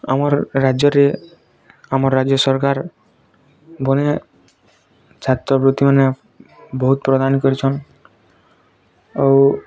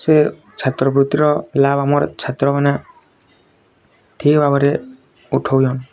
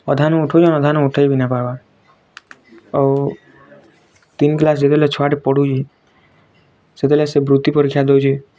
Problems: constant background noise